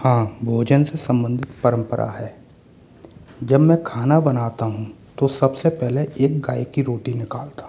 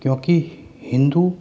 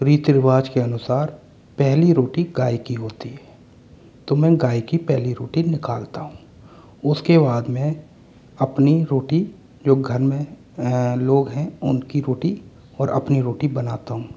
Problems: background sounds at intervals